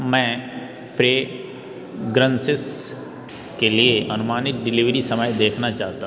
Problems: none marked